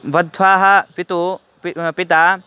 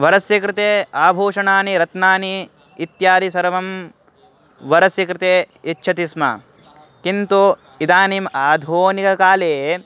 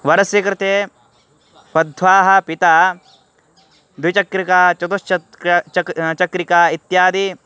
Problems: constant background noise